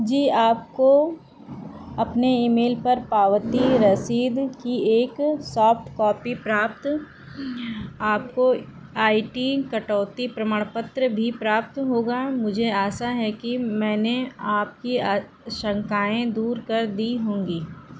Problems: constant background noise